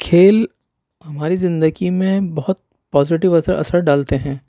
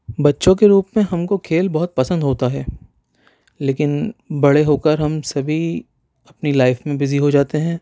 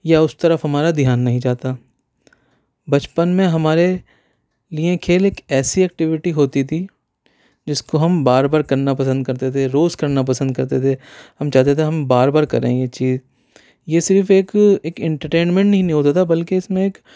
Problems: none marked